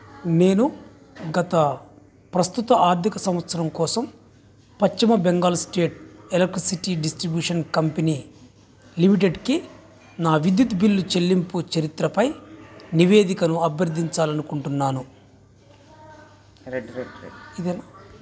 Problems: constant background noise, background conversations at intervals